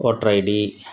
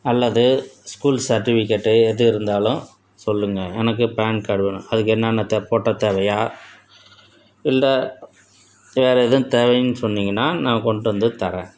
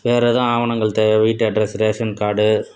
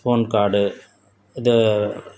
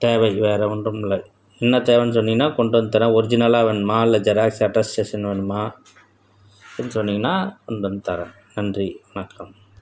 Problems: none marked